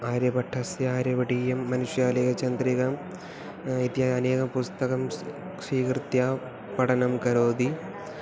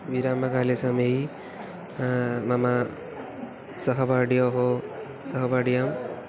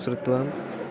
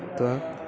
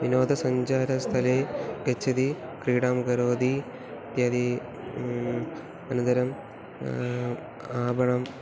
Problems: background sounds at intervals